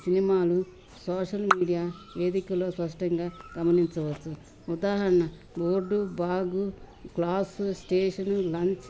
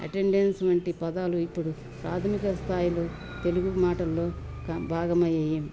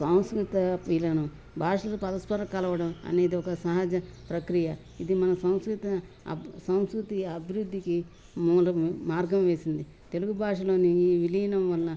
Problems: none marked